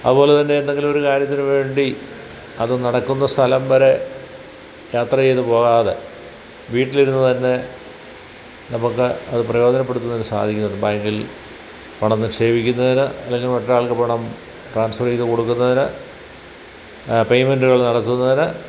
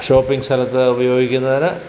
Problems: background sounds at intervals